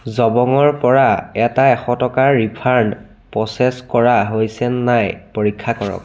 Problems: none marked